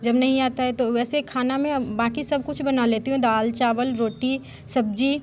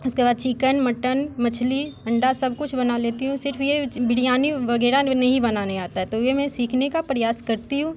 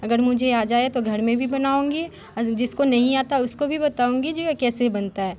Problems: constant background noise